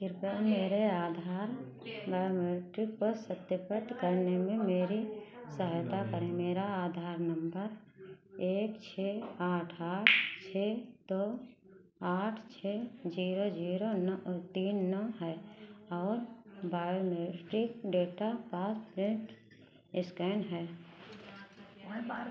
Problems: none marked